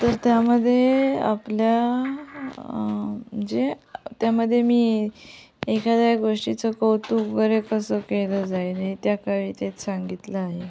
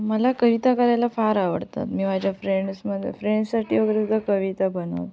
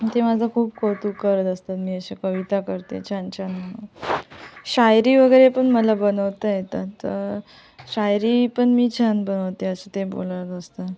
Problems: none marked